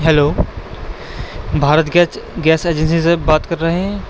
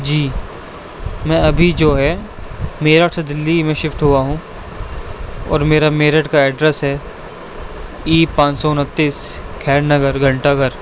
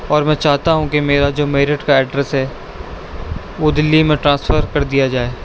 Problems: constant background noise